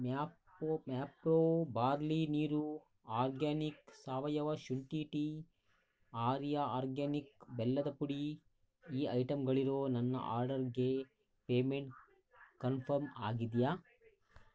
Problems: none marked